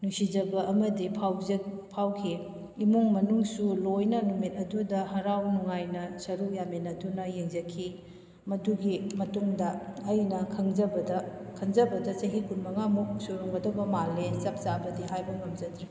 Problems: background sounds at intervals